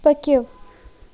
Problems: constant background noise